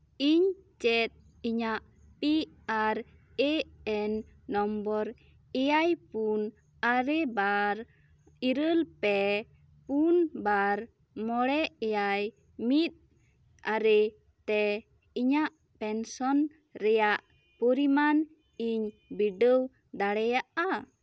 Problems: none marked